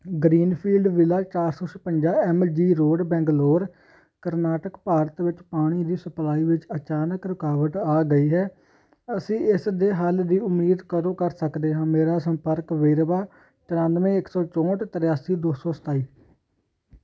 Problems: constant background noise